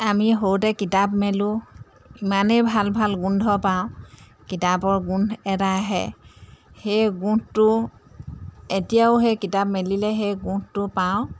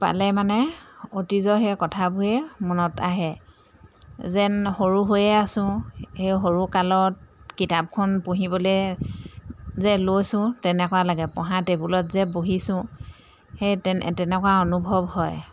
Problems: background sounds at intervals, background conversations at intervals